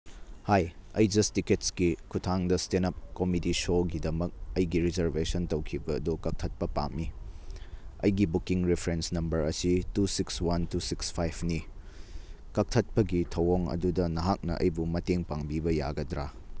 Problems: none marked